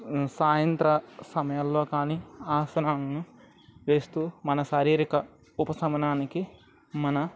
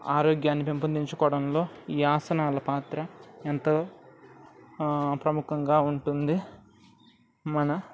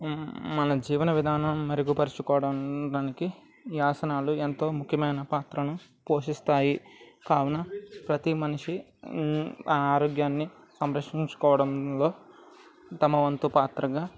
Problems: none marked